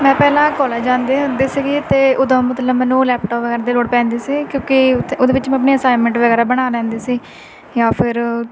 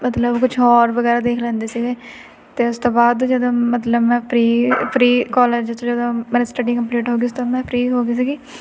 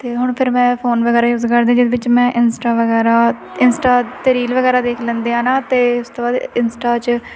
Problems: constant background noise